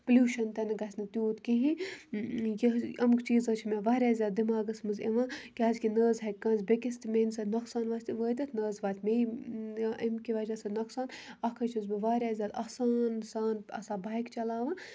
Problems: background sounds at intervals